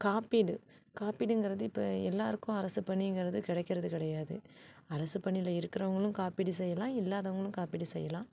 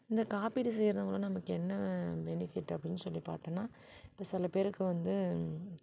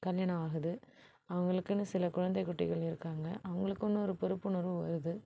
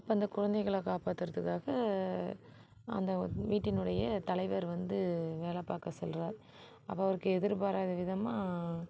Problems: background sounds at intervals